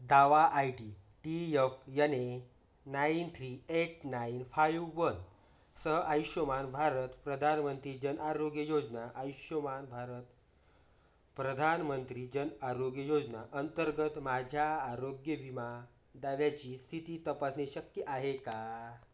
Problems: none marked